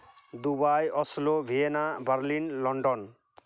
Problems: none marked